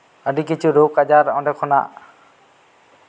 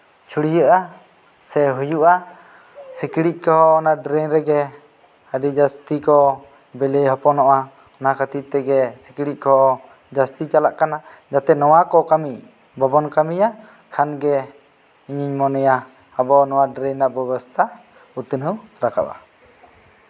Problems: background sounds at intervals